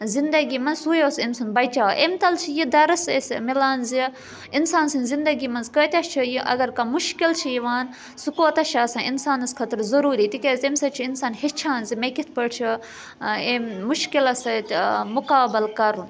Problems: constant background noise